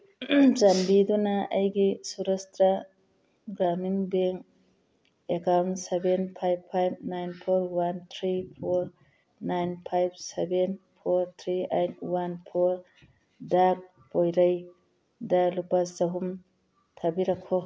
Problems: background sounds at intervals